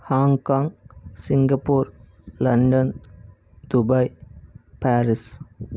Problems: none marked